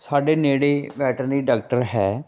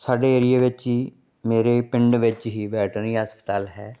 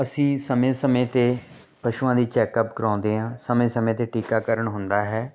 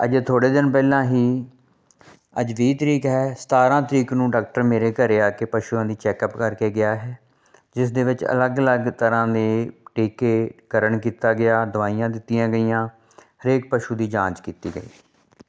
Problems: none marked